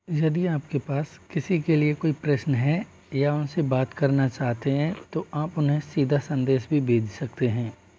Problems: constant background noise, continuous background conversations